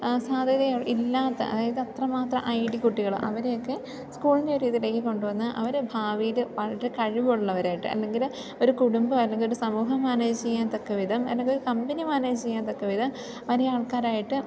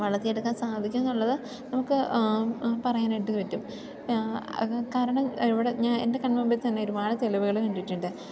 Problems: continuous background conversations, low volume